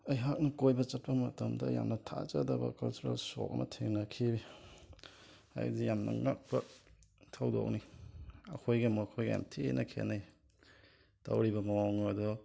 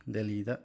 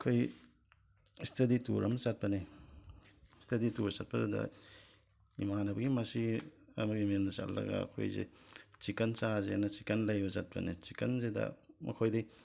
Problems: background sounds at intervals, low volume